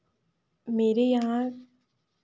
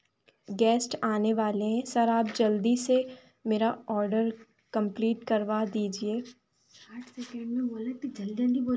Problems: background conversations at intervals